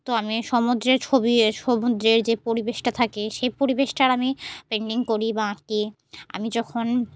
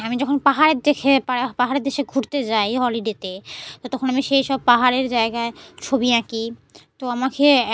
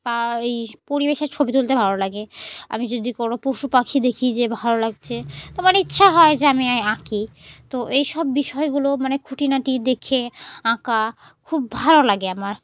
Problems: background sounds at intervals